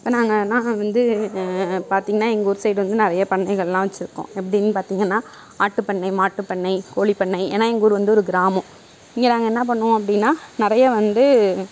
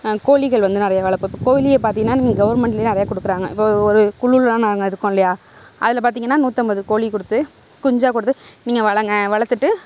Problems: none marked